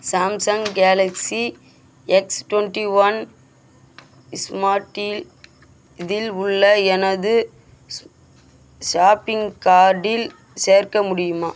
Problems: constant background noise